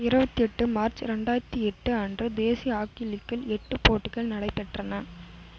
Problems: constant background noise